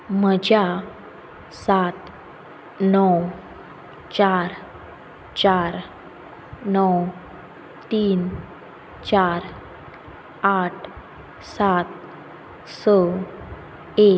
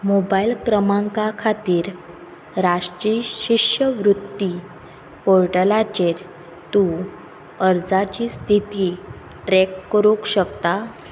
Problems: background sounds at intervals